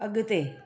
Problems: none marked